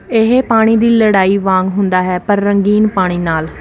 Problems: constant background noise